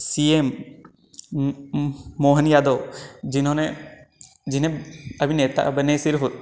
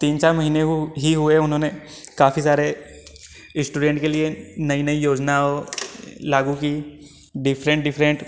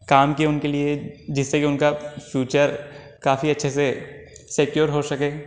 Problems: constant background noise